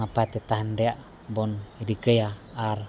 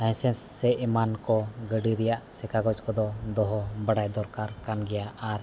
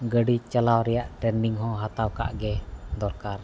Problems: background sounds at intervals